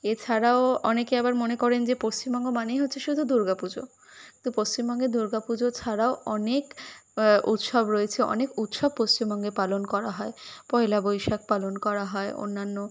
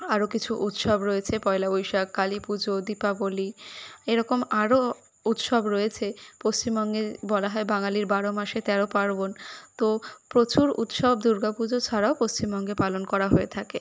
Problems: constant background noise